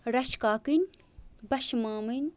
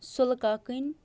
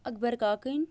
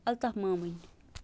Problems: none marked